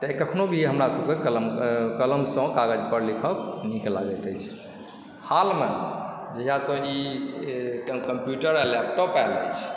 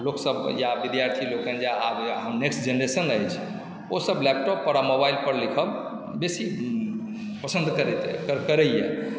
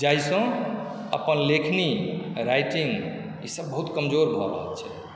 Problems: none marked